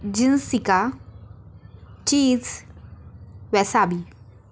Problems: none marked